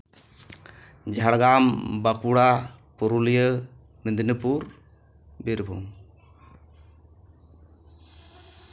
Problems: none marked